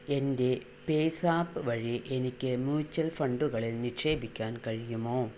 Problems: constant background noise, low volume